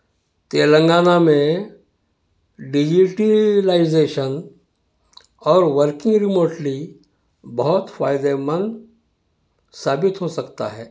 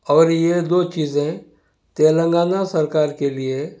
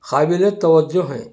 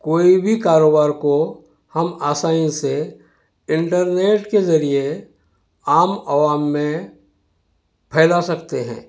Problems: none marked